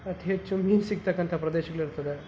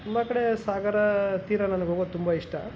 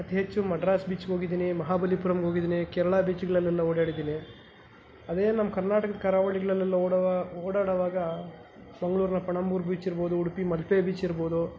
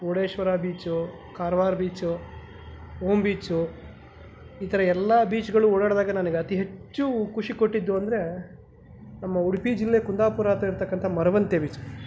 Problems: none marked